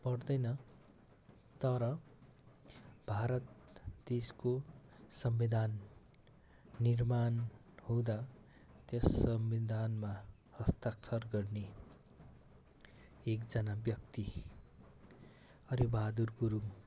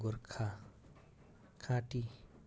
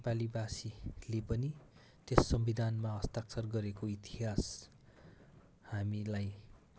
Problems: constant background noise